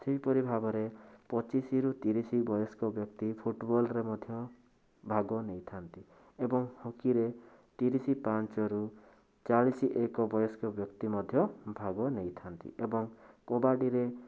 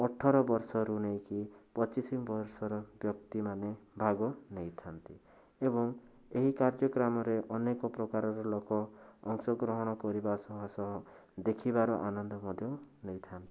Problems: constant background noise